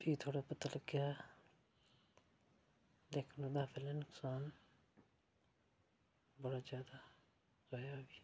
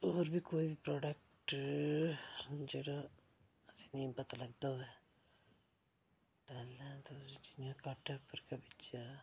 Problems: low volume